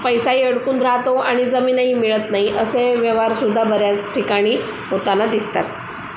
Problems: constant background noise